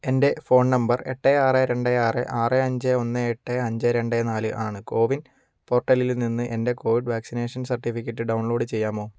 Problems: none marked